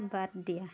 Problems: background conversations at intervals